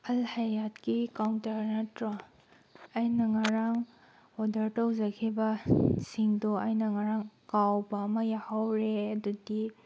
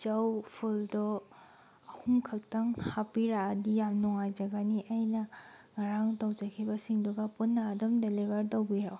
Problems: none marked